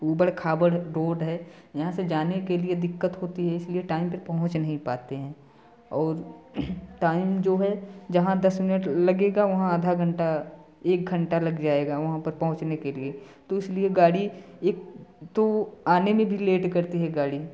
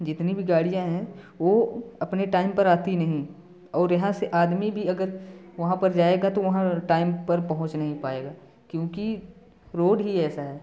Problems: none marked